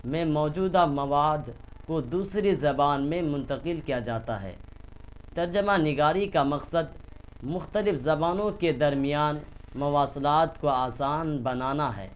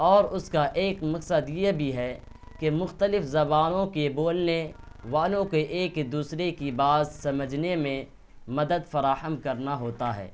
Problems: none marked